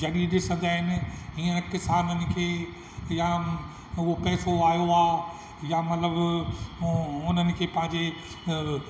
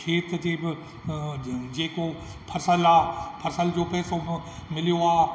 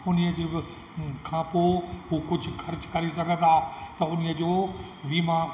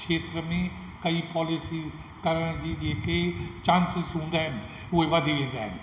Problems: constant background noise, echo